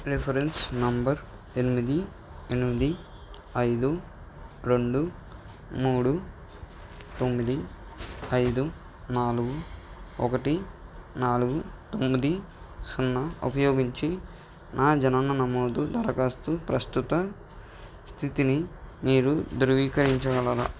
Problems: background sounds at intervals